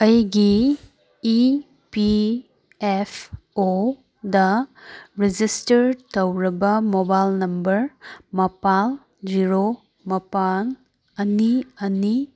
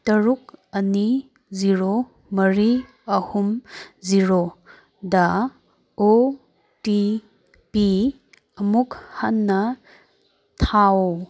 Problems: none marked